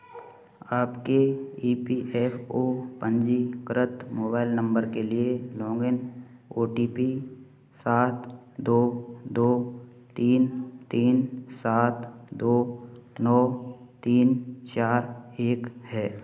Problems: none marked